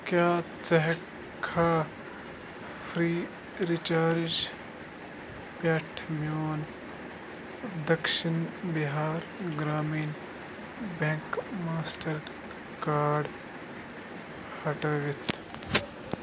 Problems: constant background noise